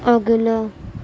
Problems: constant background noise